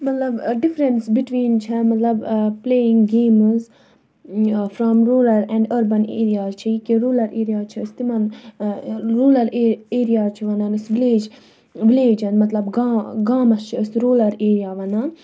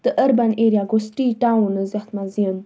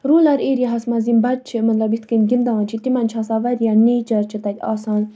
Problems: none marked